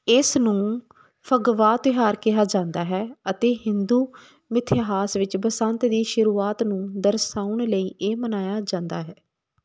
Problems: none marked